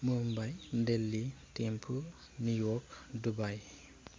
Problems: low volume